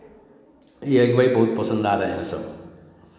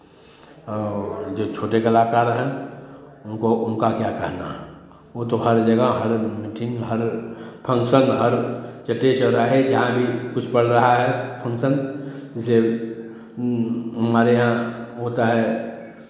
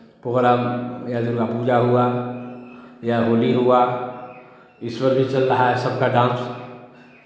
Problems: background conversations at intervals, echo